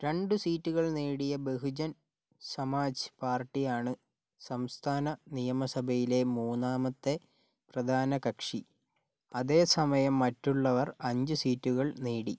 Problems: none marked